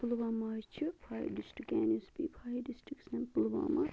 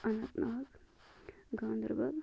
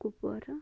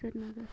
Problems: constant background noise, low volume